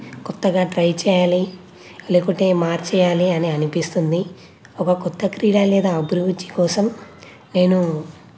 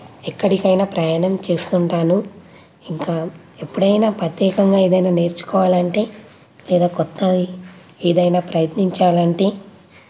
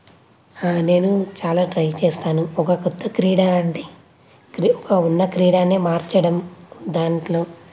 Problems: none marked